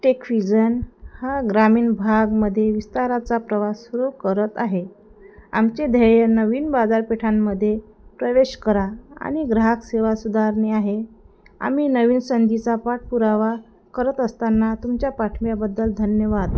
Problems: none marked